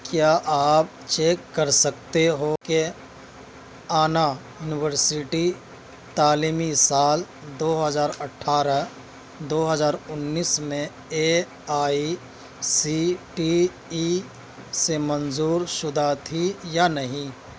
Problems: constant background noise